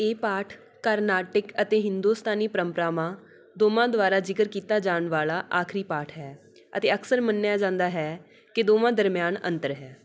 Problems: none marked